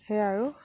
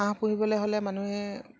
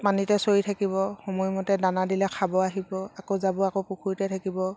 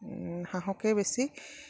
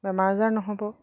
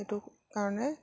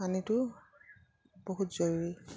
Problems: none marked